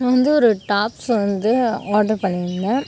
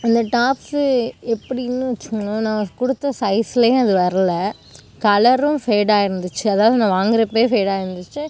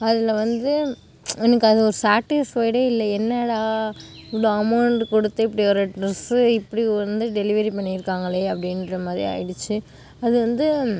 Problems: background sounds at intervals